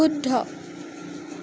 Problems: constant background noise